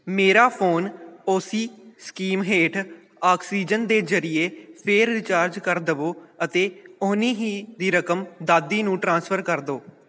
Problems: none marked